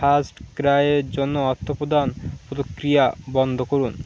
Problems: constant background noise